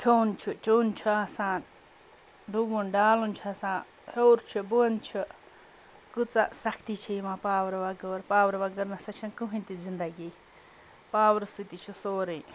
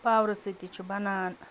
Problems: background conversations at intervals